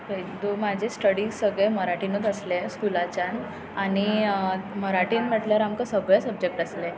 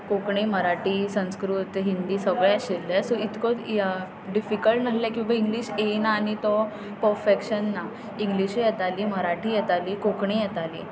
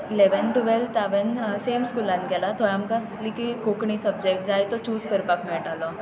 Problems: constant background noise